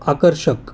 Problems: constant background noise